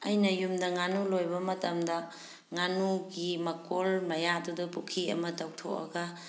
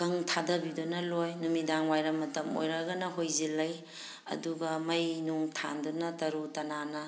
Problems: background sounds at intervals